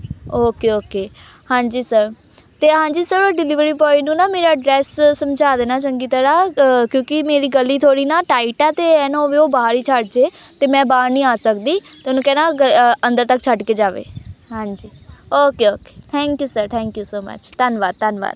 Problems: background sounds at intervals, background conversations at intervals